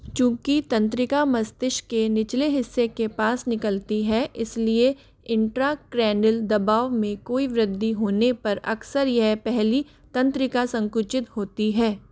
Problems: none marked